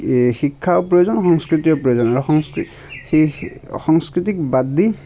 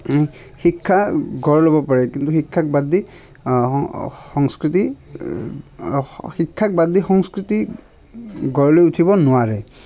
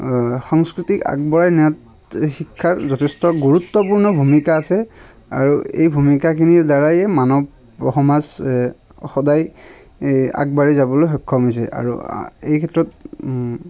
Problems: constant background noise